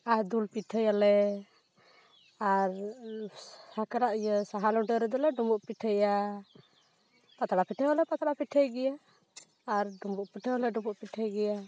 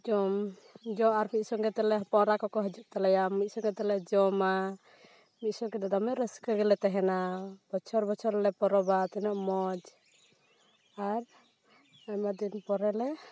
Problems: constant background noise